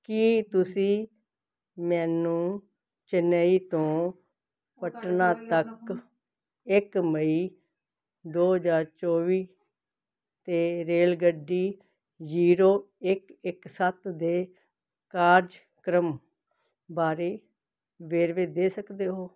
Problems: background conversations at intervals